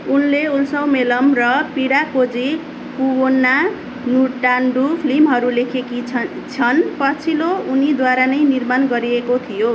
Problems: constant background noise